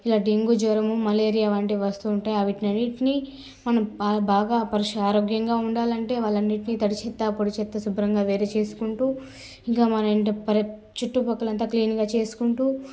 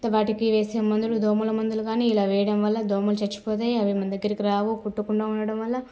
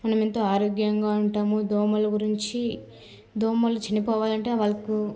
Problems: constant background noise, background conversations at intervals